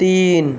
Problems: constant background noise